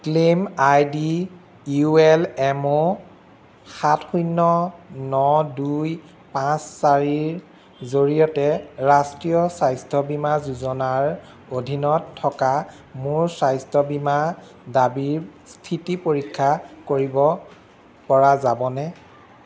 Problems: none marked